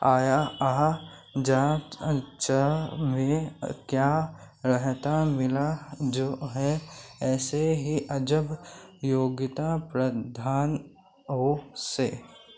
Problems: constant background noise